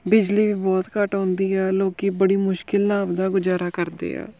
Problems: background sounds at intervals